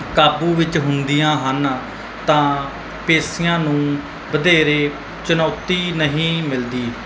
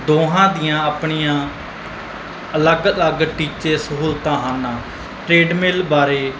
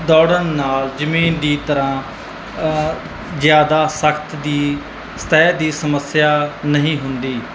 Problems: none marked